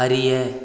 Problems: none marked